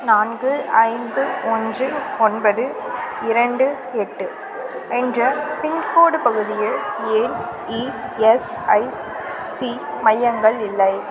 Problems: constant background noise